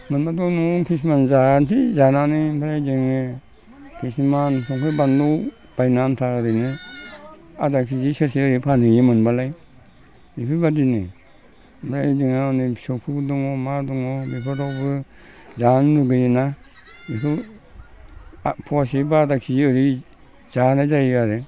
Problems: constant background noise